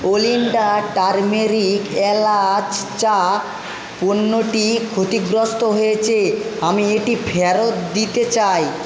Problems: constant background noise